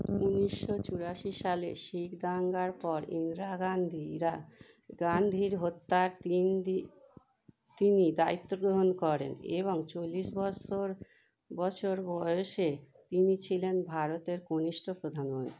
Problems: none marked